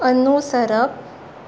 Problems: background sounds at intervals